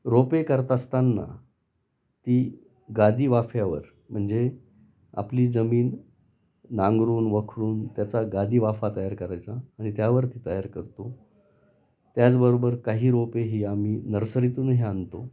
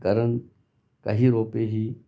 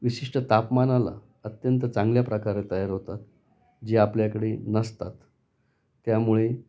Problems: constant background noise, continuous background conversations